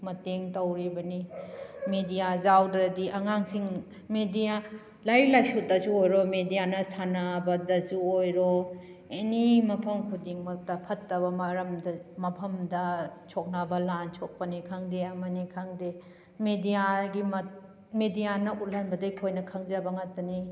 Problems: background sounds at intervals